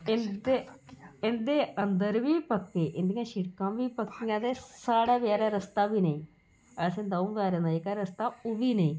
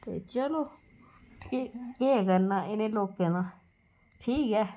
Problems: constant background noise